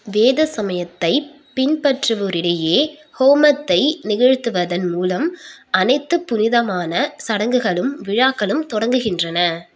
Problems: none marked